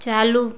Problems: constant background noise